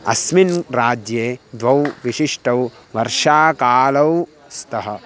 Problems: constant background noise